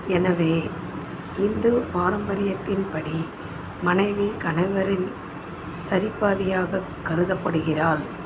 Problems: constant background noise